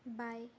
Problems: background sounds at intervals